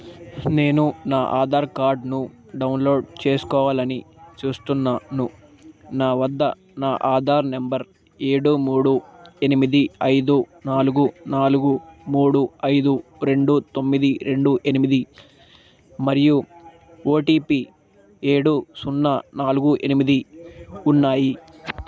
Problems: constant background noise